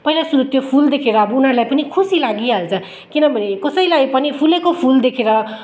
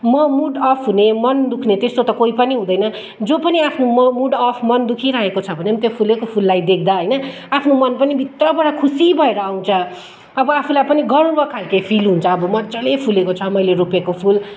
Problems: background conversations at intervals